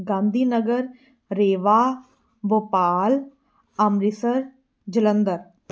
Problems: none marked